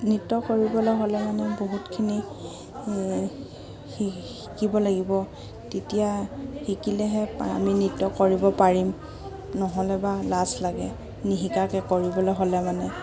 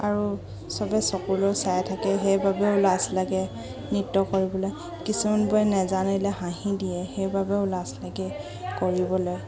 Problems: none marked